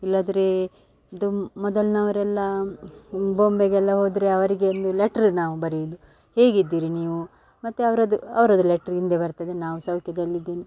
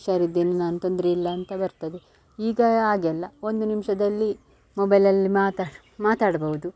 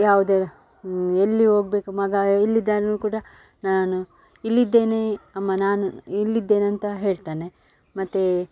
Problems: background sounds at intervals